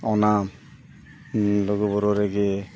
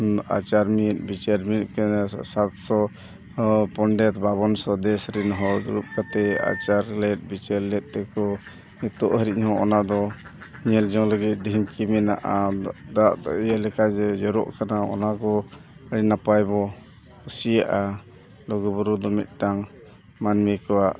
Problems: constant background noise, continuous background conversations